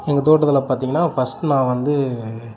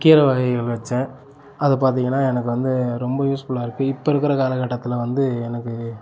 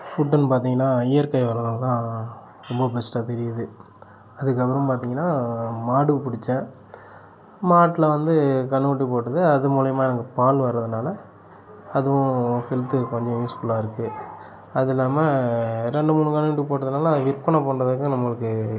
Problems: none marked